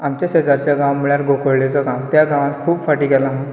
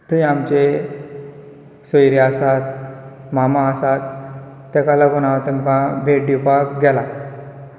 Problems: background sounds at intervals